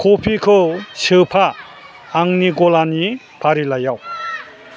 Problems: constant background noise